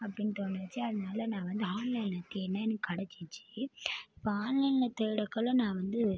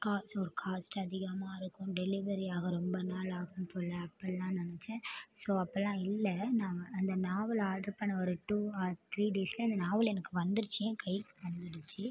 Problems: low volume